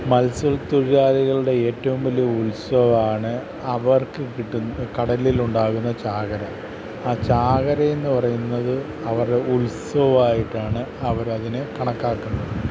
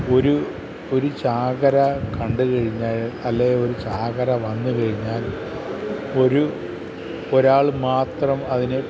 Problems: constant background noise